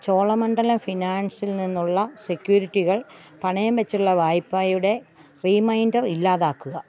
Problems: background sounds at intervals